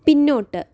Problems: low volume